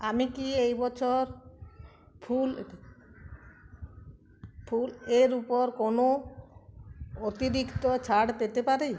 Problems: constant background noise, continuous background conversations